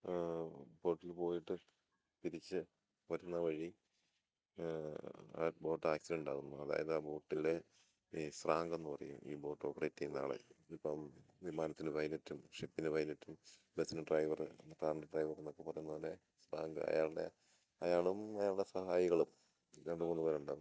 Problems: none marked